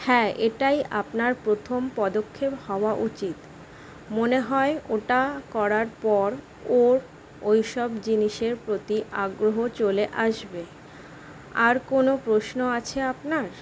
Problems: constant background noise